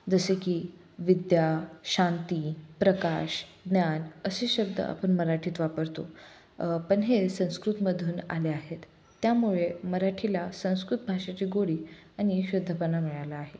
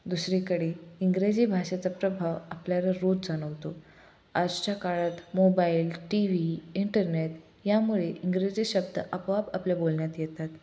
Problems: none marked